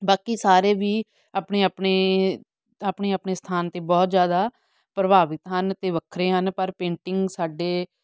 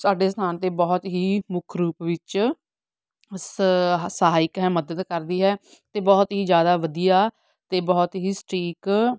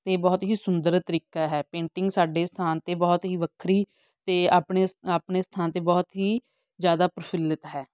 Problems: background sounds at intervals